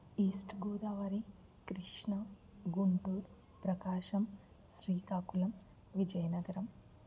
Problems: low volume